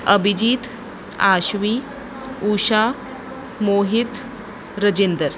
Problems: background sounds at intervals